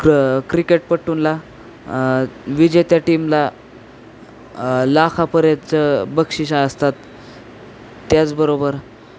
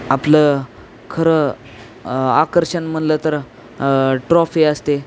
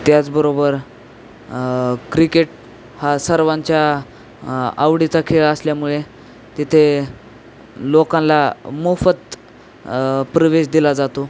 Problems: constant background noise, background conversations at intervals